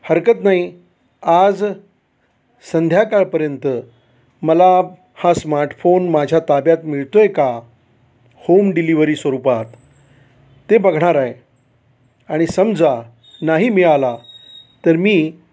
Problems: constant background noise